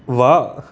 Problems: background sounds at intervals